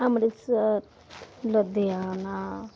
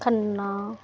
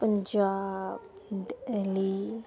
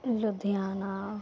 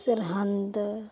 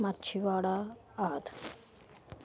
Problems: none marked